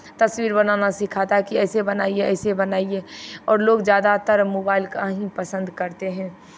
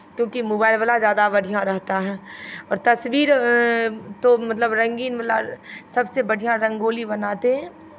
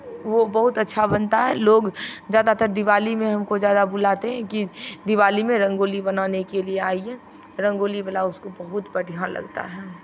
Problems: background sounds at intervals